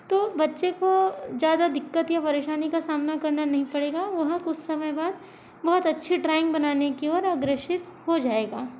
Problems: constant background noise